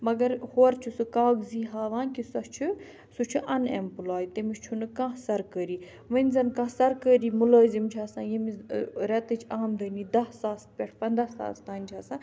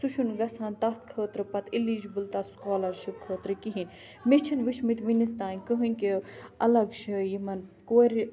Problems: none marked